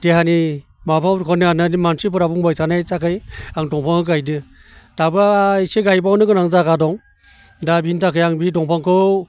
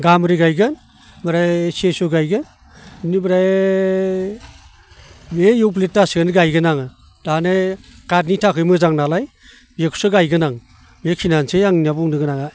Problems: none marked